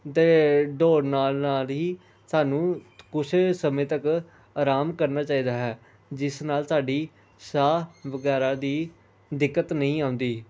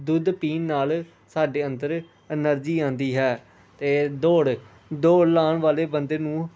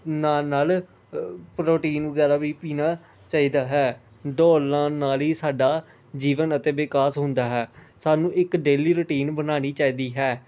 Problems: constant background noise